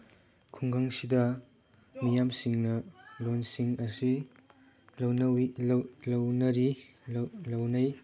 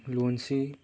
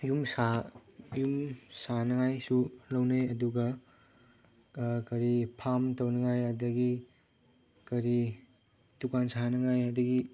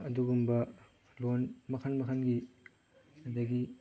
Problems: background sounds at intervals, background conversations at intervals